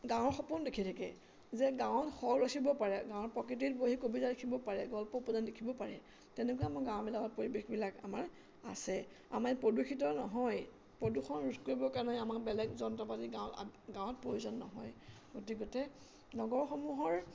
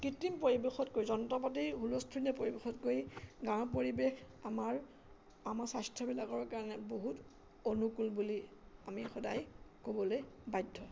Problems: constant background noise, background conversations at intervals